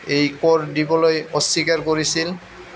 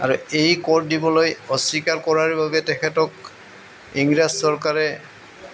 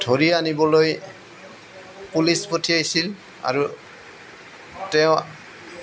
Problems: none marked